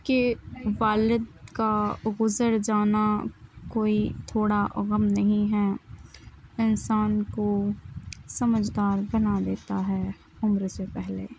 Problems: background sounds at intervals, continuous background conversations